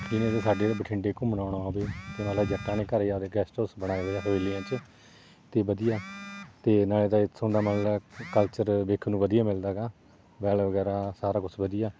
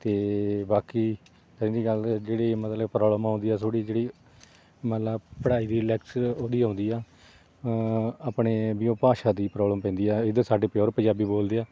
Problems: none marked